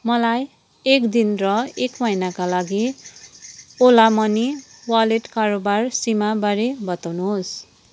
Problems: none marked